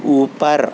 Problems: constant background noise